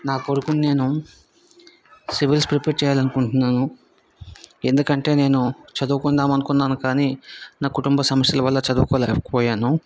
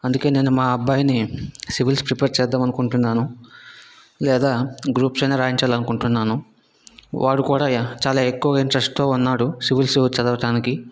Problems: background conversations at intervals